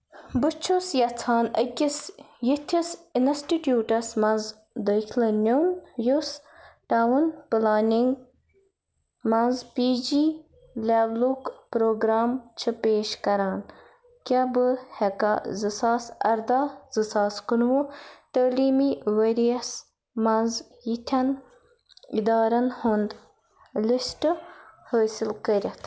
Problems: background sounds at intervals